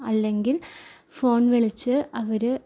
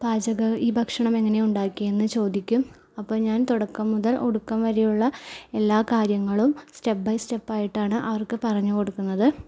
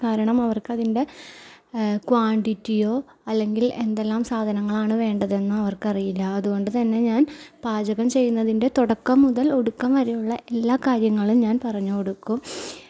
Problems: none marked